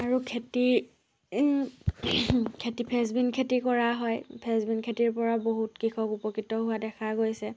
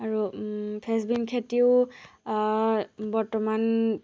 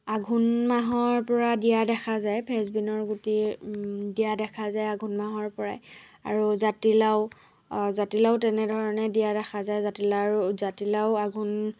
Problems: none marked